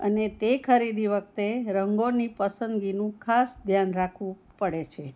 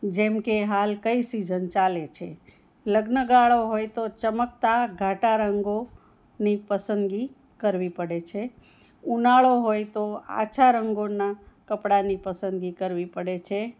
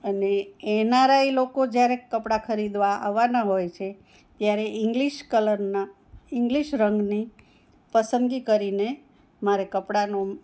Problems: none marked